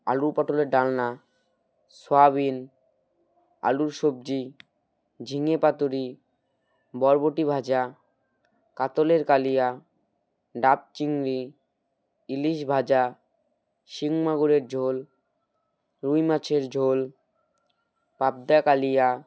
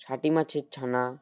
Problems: background sounds at intervals